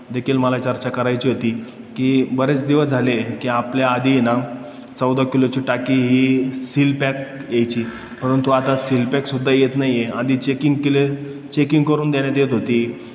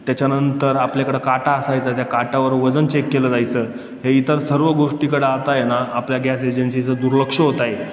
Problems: none marked